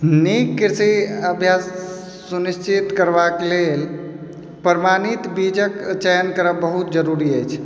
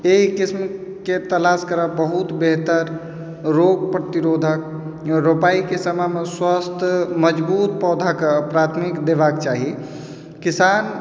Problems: background sounds at intervals, background conversations at intervals